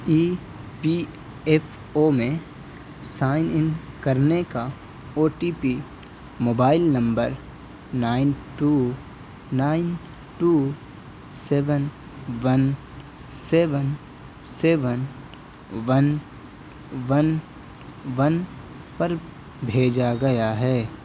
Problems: none marked